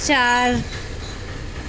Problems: constant background noise